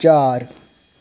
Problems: none marked